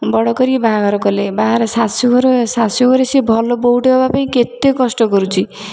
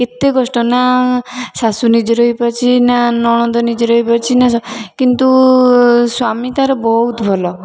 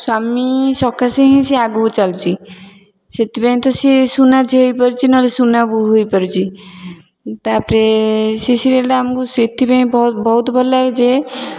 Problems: background sounds at intervals, background conversations at intervals